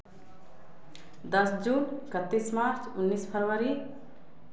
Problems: none marked